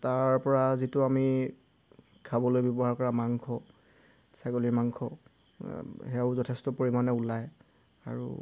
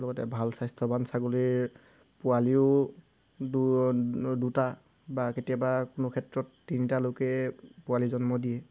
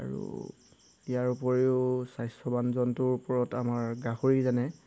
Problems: background sounds at intervals